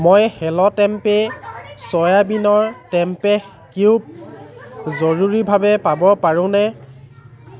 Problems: constant background noise